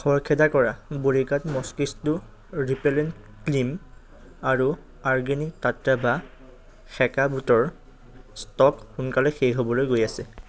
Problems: none marked